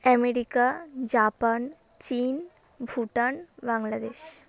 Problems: constant background noise, background conversations at intervals